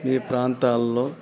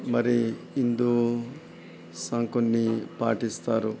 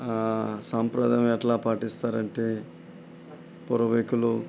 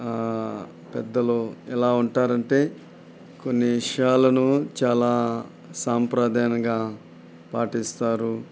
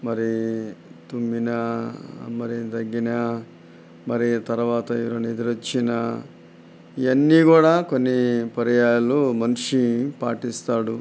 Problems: none marked